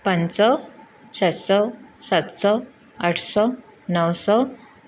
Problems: none marked